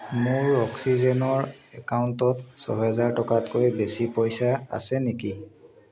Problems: constant background noise